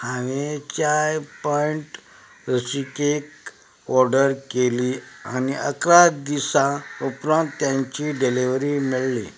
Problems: background sounds at intervals